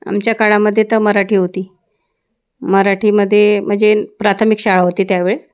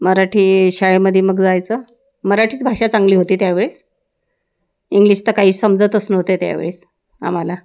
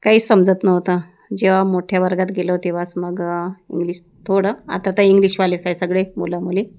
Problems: background sounds at intervals